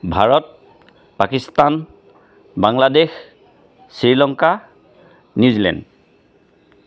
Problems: constant background noise